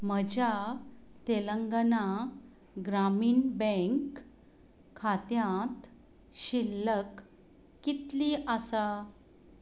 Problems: constant background noise